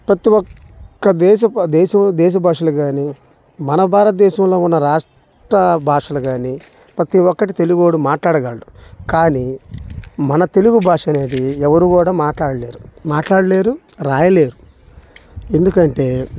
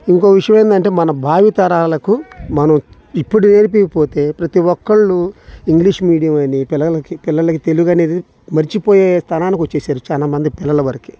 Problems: constant background noise